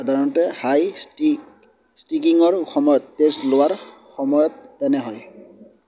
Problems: background sounds at intervals